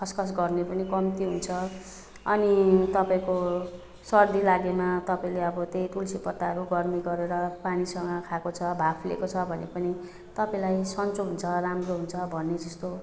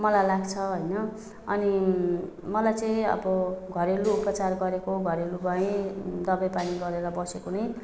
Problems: none marked